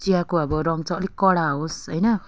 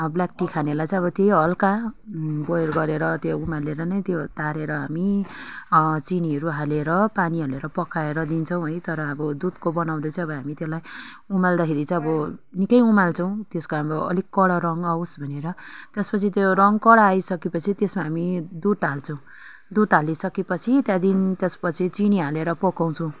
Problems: none marked